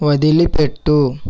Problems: none marked